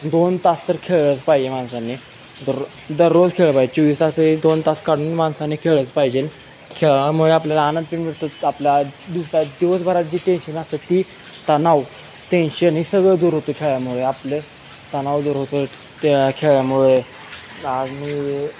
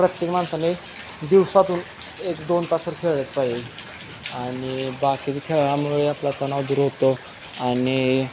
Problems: constant background noise, background conversations at intervals